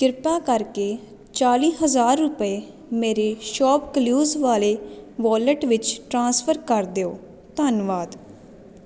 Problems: constant background noise